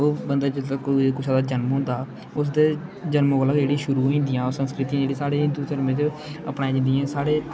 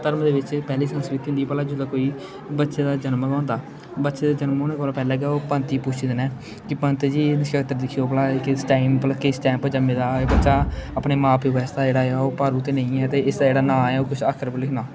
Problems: constant background noise, background conversations at intervals